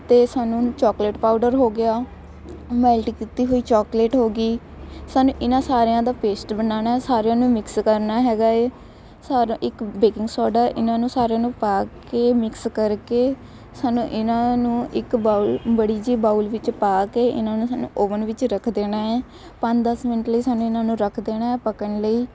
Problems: constant background noise, background conversations at intervals